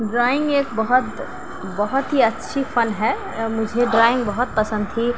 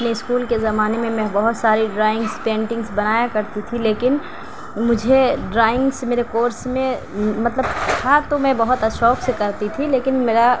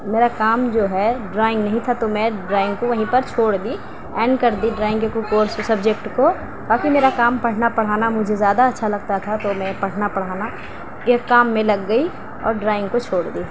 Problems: constant background noise, continuous background conversations